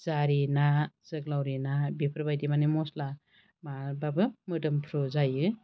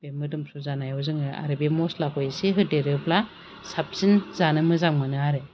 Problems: constant background noise